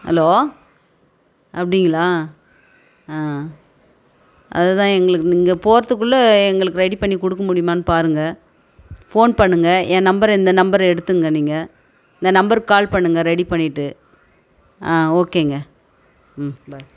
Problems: background conversations at intervals